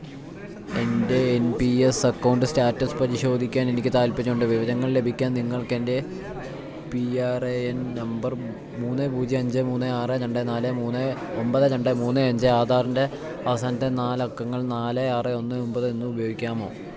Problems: background sounds at intervals